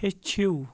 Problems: background sounds at intervals